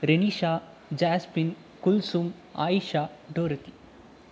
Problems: none marked